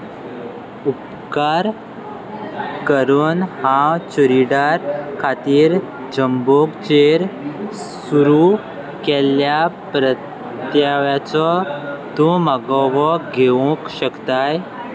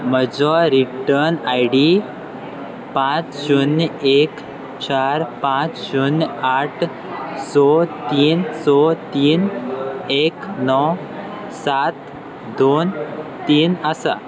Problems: constant background noise, continuous background conversations